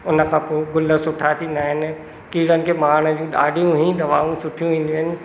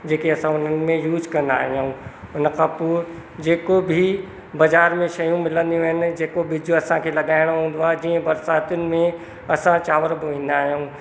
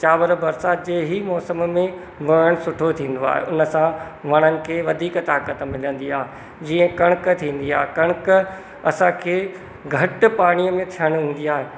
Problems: constant background noise, echo